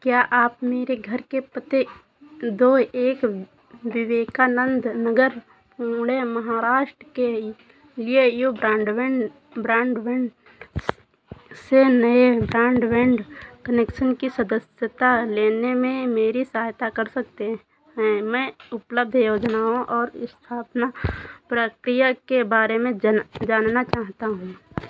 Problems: constant background noise